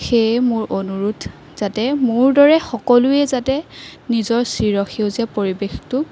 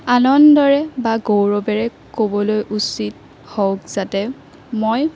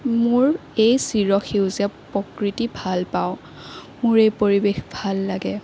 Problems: constant background noise